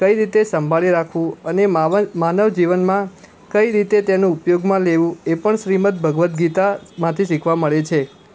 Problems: constant background noise